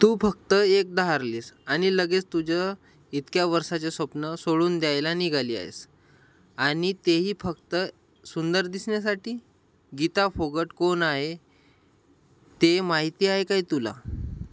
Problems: none marked